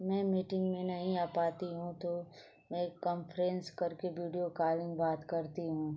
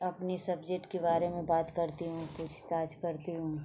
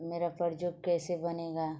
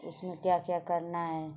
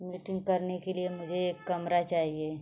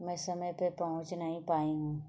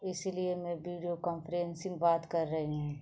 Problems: constant background noise